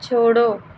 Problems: constant background noise